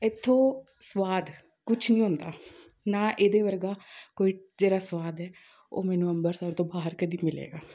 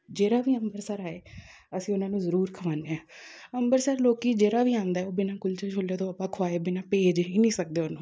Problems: none marked